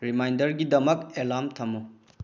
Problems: low volume